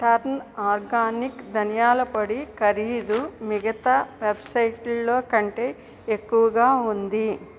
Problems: background sounds at intervals